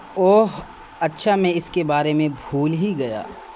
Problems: constant background noise